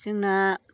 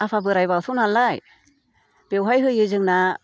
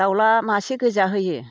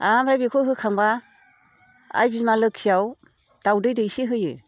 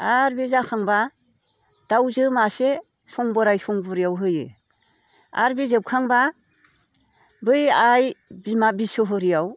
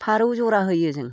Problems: none marked